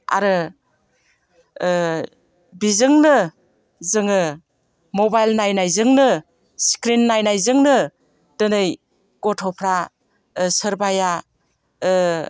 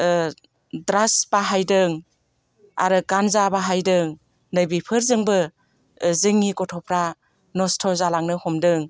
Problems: none marked